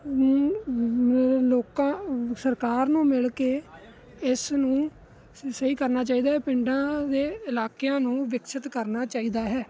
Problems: constant background noise